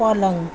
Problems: constant background noise